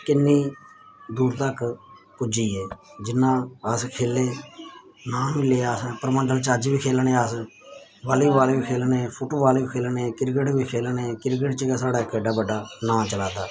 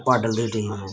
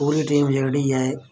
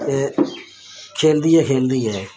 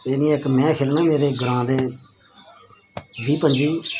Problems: background sounds at intervals